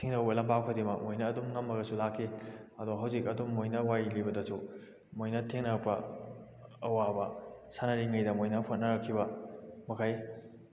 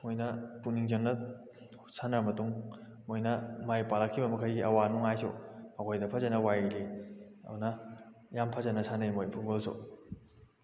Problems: none marked